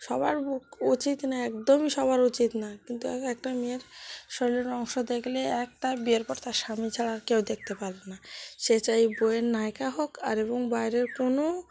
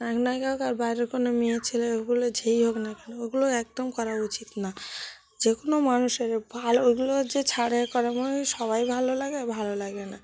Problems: background sounds at intervals